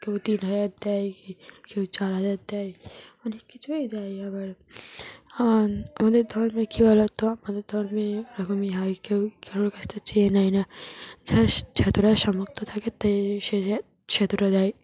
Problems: constant background noise